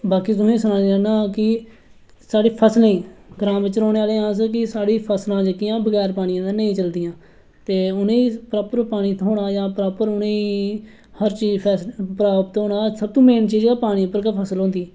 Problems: none marked